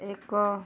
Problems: low volume